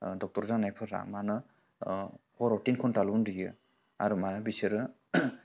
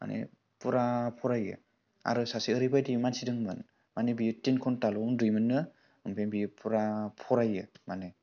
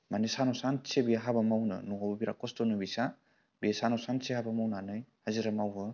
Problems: none marked